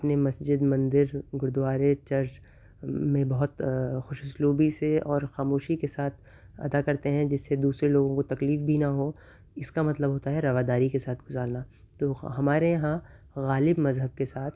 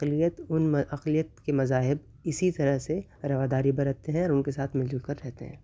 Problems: none marked